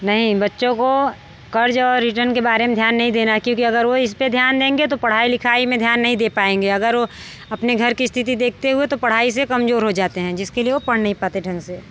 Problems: background sounds at intervals